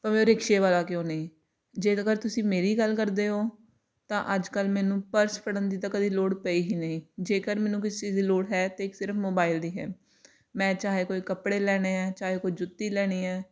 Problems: none marked